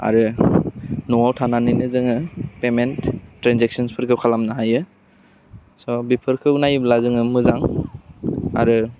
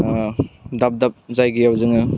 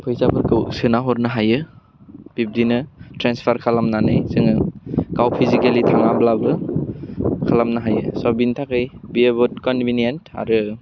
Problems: constant background noise